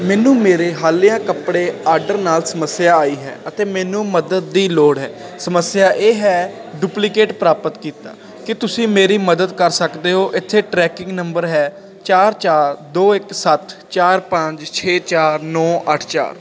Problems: constant background noise